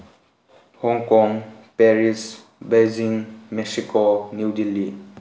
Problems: background sounds at intervals